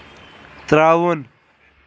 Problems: none marked